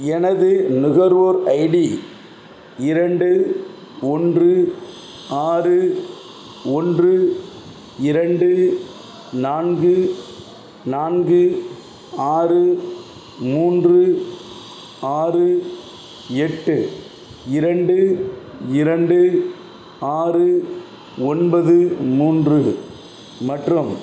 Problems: none marked